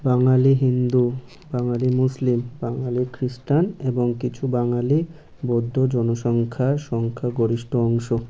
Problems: none marked